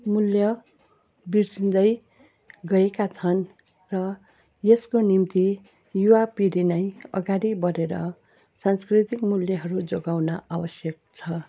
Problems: constant background noise